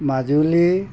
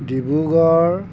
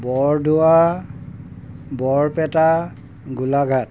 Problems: background sounds at intervals